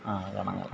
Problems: constant background noise, background conversations at intervals